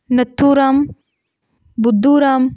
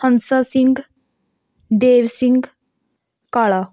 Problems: none marked